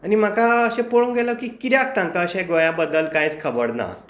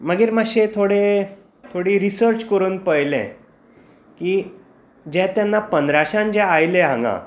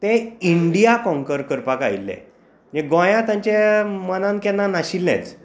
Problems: constant background noise